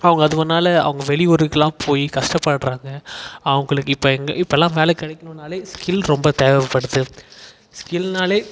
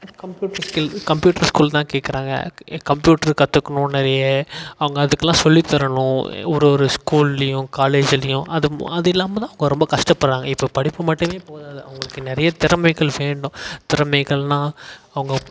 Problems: echo